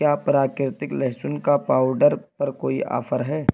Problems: constant background noise